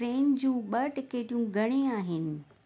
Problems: constant background noise